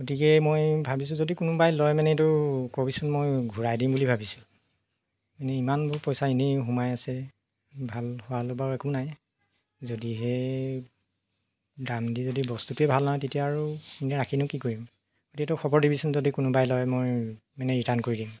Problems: constant background noise